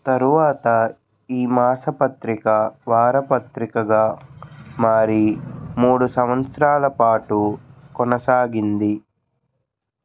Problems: none marked